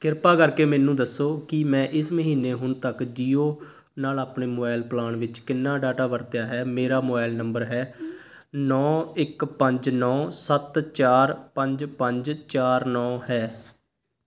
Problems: constant background noise